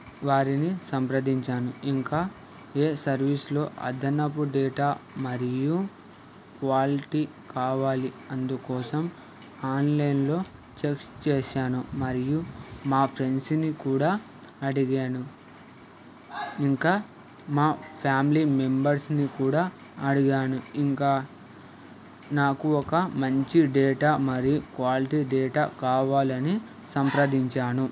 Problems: constant background noise, background conversations at intervals